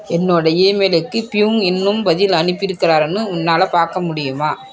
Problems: background conversations at intervals